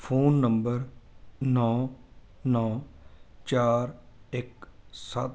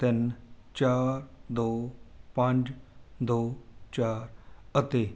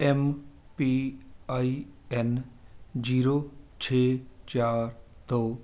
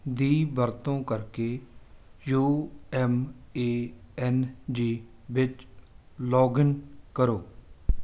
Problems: background sounds at intervals